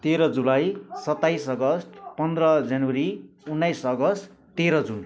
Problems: background conversations at intervals